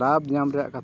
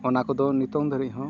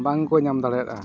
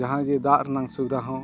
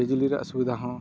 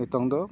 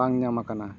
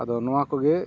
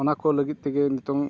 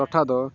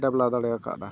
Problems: constant background noise